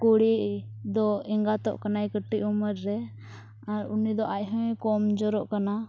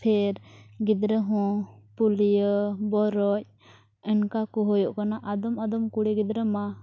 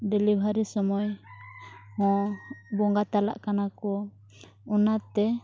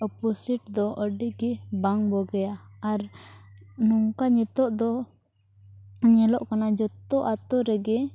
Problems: background sounds at intervals